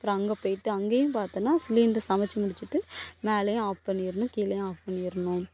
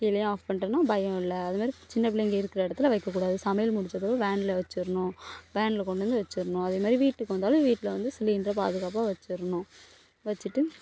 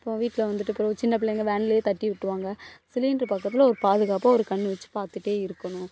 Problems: background sounds at intervals